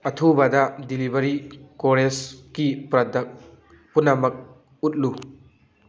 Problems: background sounds at intervals